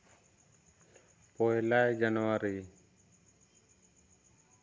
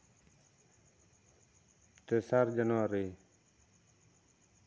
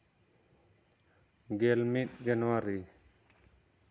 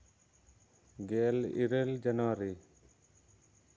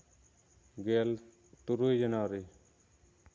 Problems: none marked